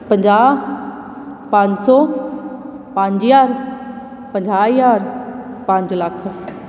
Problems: background sounds at intervals